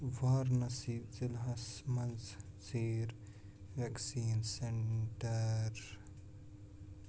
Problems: background sounds at intervals, low volume